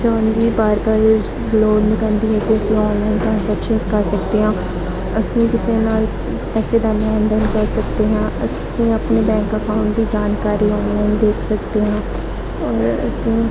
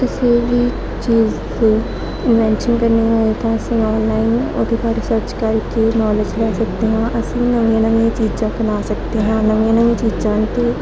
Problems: constant background noise, continuous background conversations